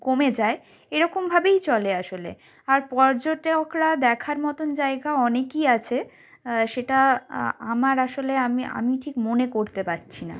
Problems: none marked